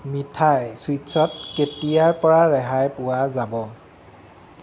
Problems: constant background noise